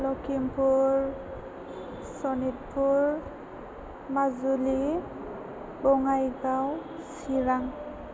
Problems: constant background noise, low volume